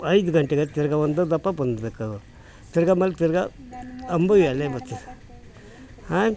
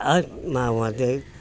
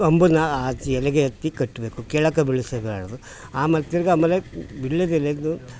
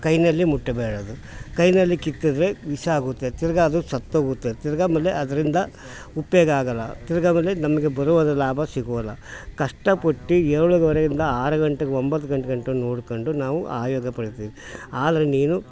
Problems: background sounds at intervals